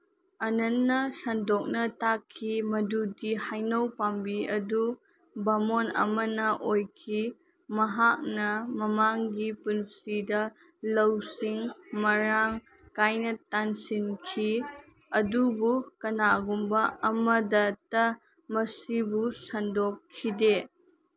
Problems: background sounds at intervals